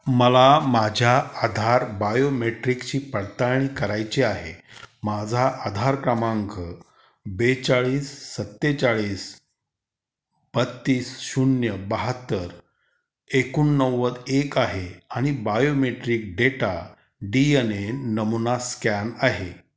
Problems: constant background noise